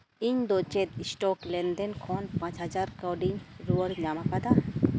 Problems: constant background noise